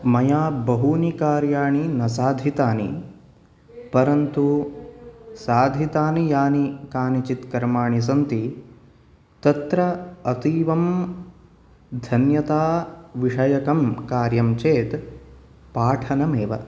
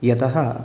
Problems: none marked